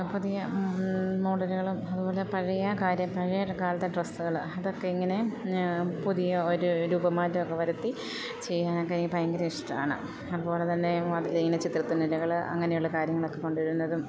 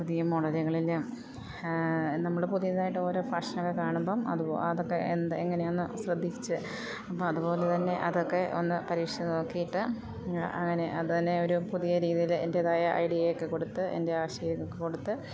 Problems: none marked